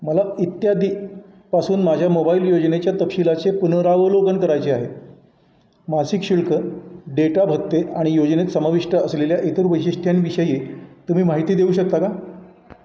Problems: none marked